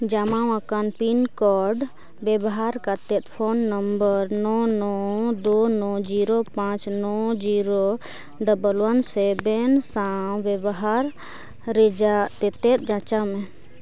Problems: background sounds at intervals, background conversations at intervals